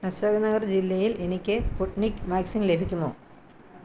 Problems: none marked